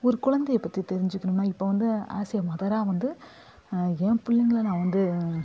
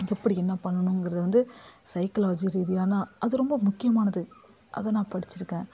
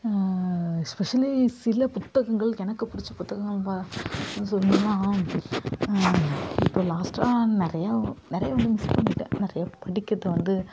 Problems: constant background noise